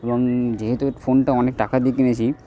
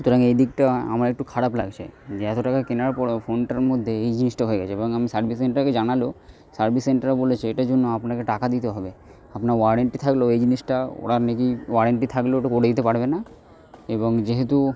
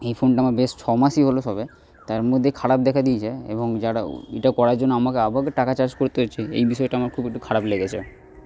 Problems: none marked